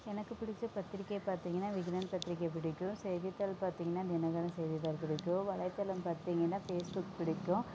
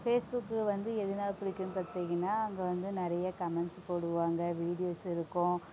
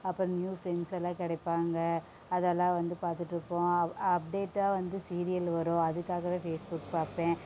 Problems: background sounds at intervals